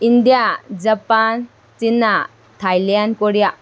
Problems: constant background noise